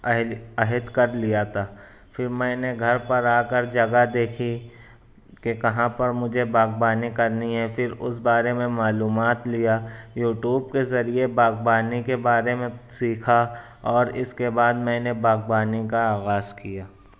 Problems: none marked